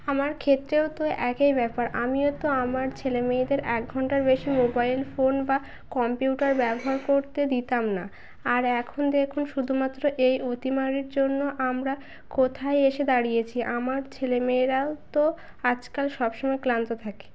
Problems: background sounds at intervals